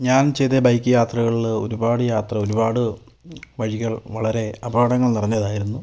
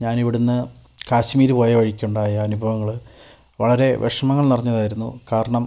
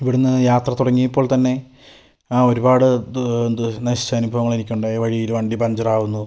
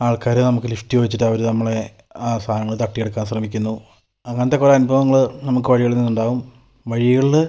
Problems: none marked